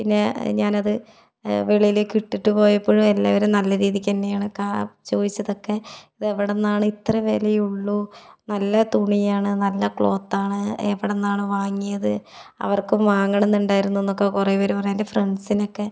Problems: none marked